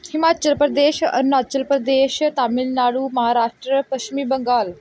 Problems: none marked